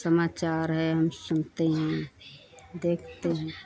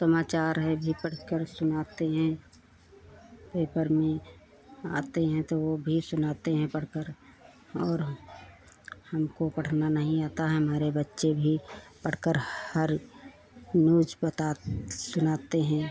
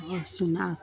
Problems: continuous background conversations